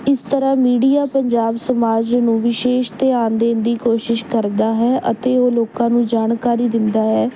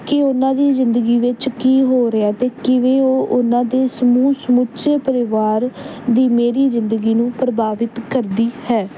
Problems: none marked